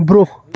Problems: constant background noise